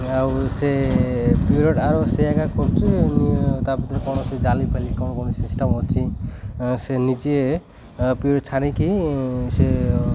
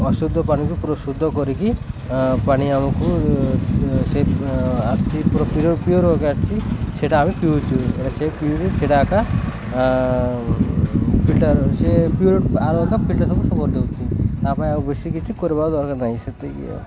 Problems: constant background noise